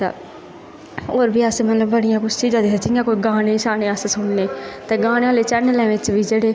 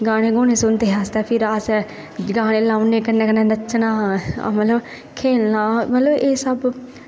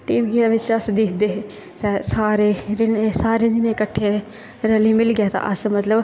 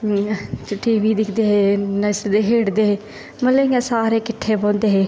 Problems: constant background noise